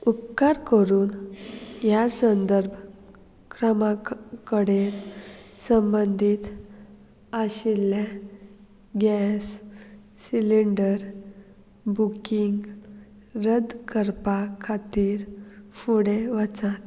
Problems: none marked